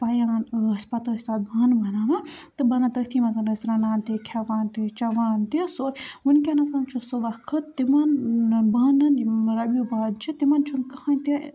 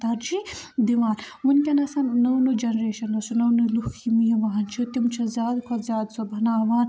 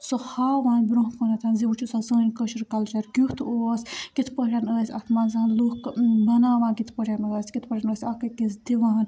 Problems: background sounds at intervals, background conversations at intervals